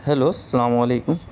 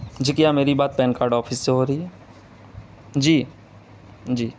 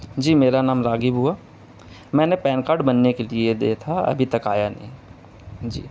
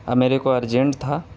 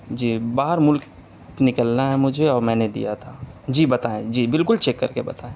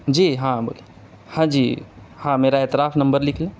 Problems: constant background noise, background conversations at intervals